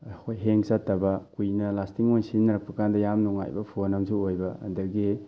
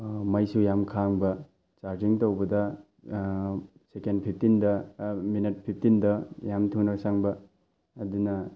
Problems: none marked